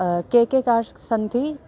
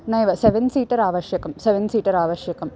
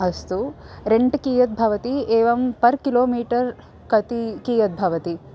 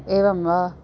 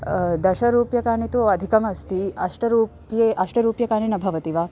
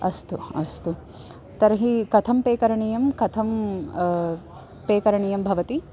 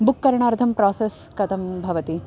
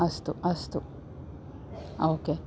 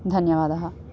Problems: constant background noise